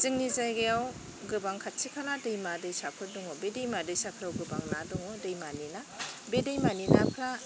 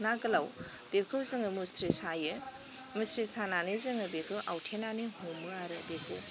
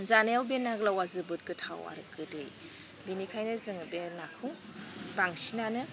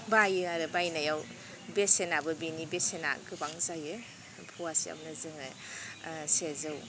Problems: none marked